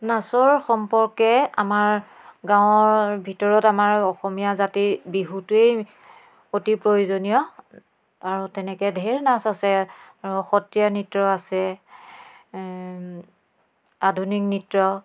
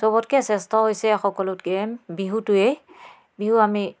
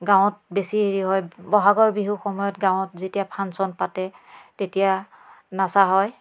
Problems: none marked